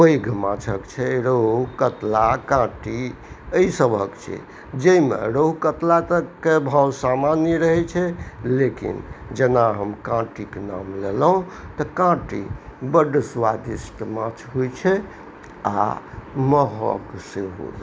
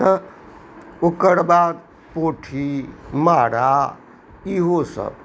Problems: none marked